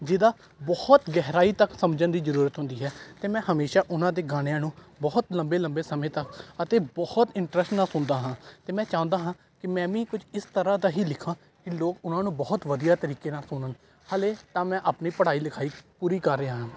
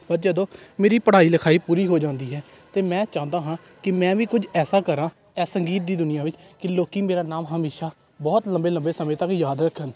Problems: constant background noise, background conversations at intervals